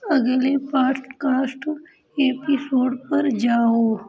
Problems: continuous background conversations